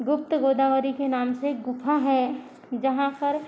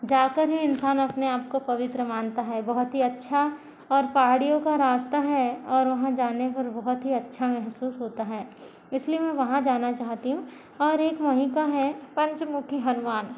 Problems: none marked